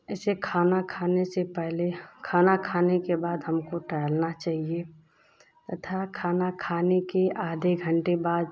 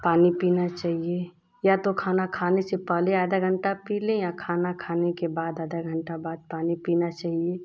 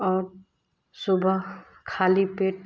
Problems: constant background noise